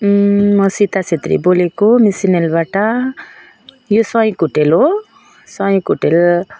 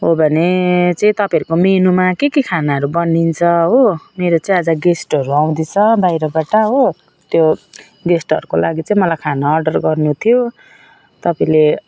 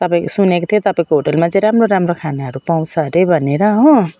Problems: none marked